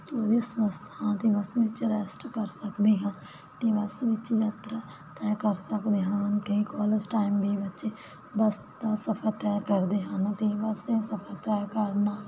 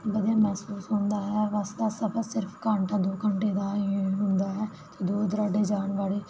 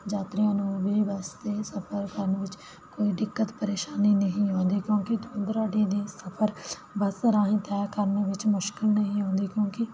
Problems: none marked